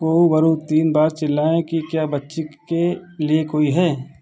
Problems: background sounds at intervals